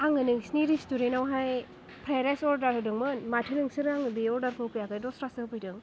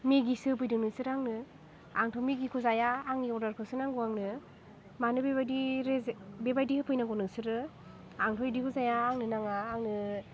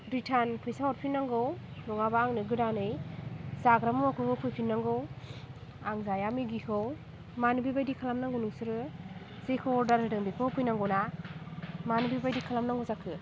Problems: none marked